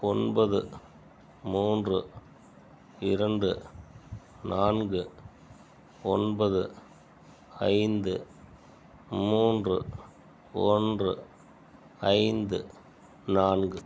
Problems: none marked